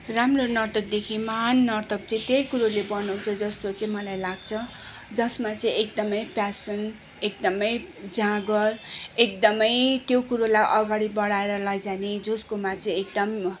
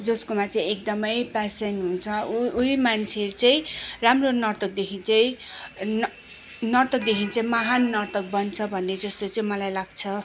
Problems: none marked